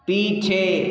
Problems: background conversations at intervals